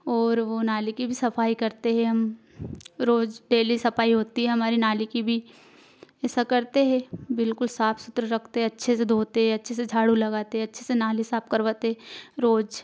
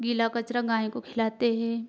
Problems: none marked